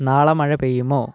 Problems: low volume